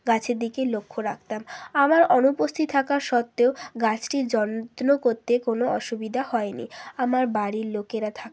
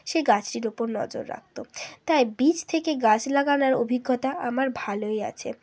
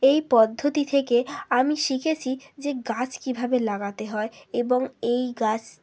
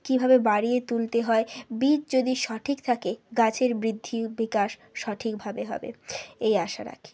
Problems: none marked